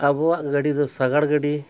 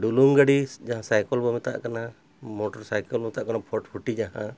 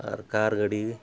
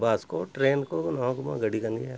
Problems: none marked